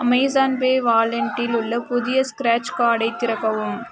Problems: constant background noise